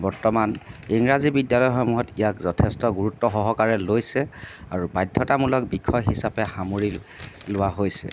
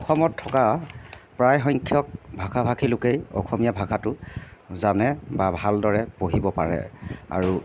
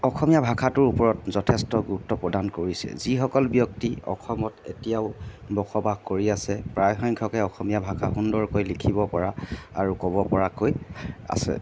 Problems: background sounds at intervals